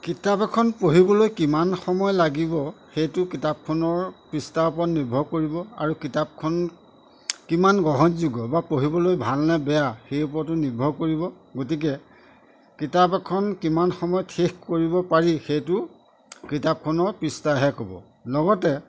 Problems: none marked